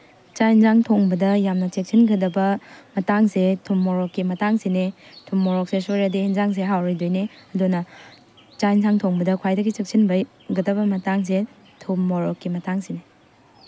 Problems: constant background noise